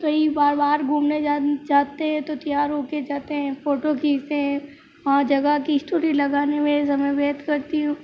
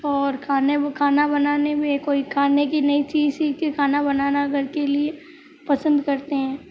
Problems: background sounds at intervals